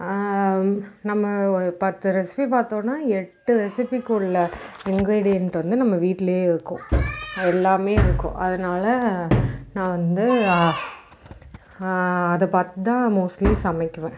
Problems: background sounds at intervals